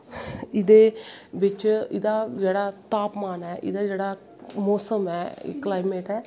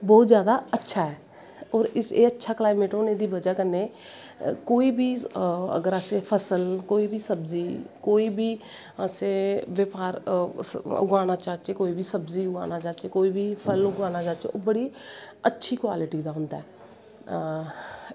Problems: constant background noise